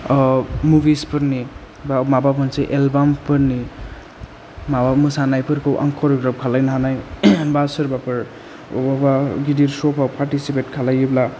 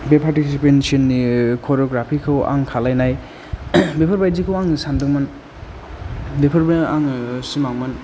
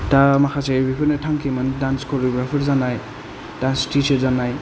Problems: low volume